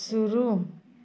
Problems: continuous background conversations